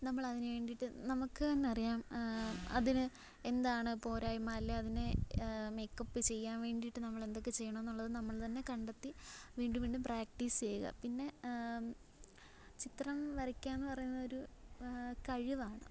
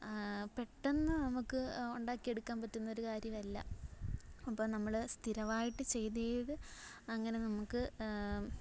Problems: background sounds at intervals, low volume